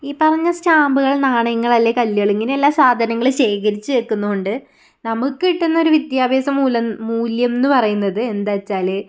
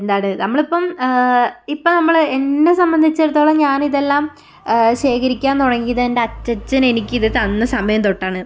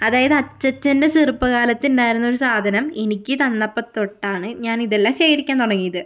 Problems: none marked